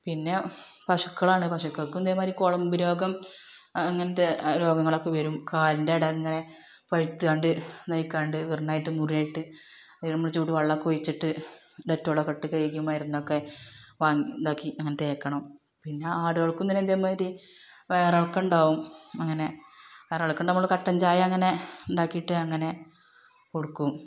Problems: background sounds at intervals, background conversations at intervals